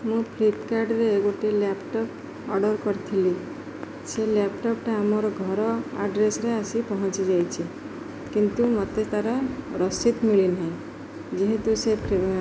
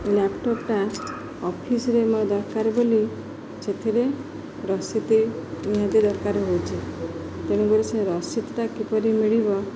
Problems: constant background noise